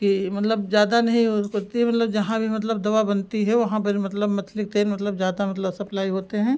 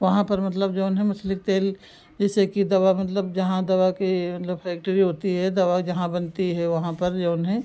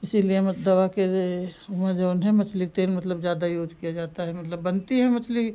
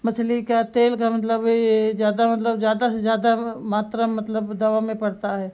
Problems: background sounds at intervals